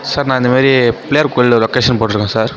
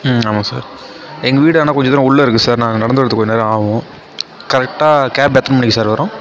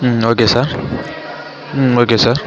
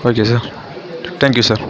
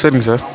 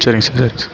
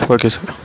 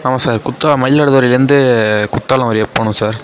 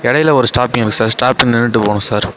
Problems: constant background noise, continuous background conversations